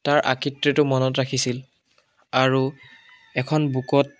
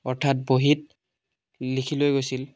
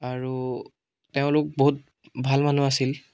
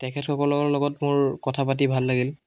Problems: background sounds at intervals, background conversations at intervals